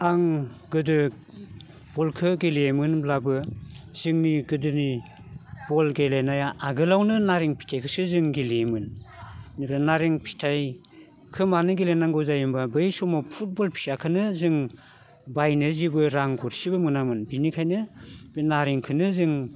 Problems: constant background noise